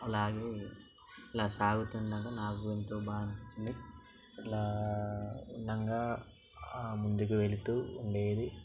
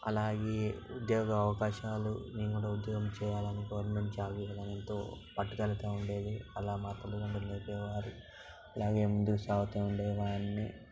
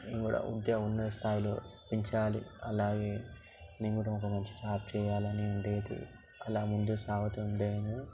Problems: background sounds at intervals, background conversations at intervals